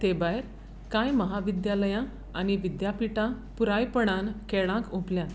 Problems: background sounds at intervals